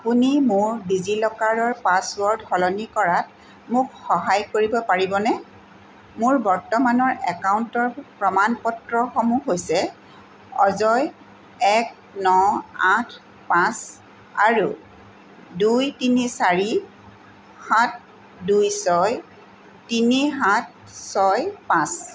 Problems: none marked